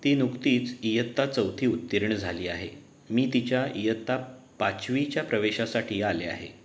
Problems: none marked